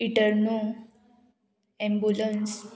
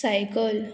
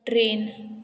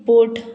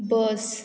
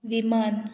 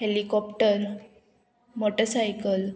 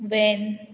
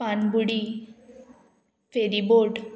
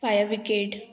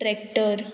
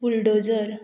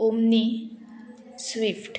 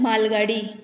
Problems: constant background noise